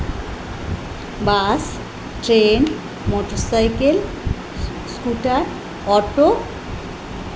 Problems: none marked